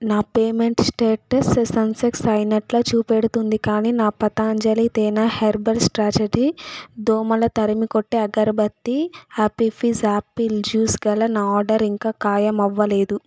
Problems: background sounds at intervals